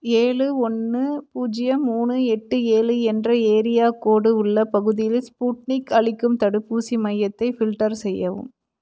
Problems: none marked